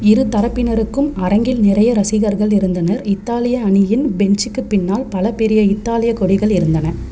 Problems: constant background noise